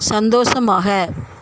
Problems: constant background noise